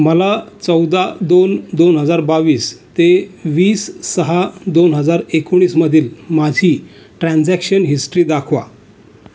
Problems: background sounds at intervals, continuous background conversations